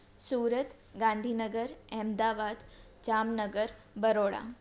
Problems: constant background noise